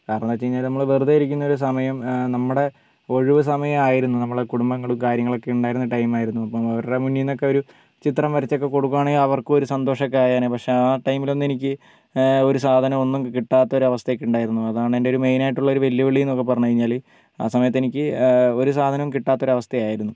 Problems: low volume